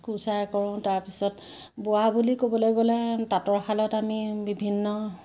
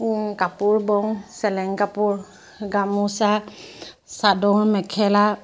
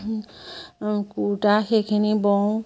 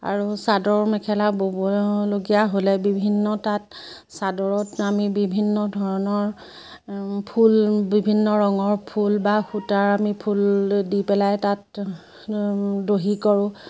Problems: none marked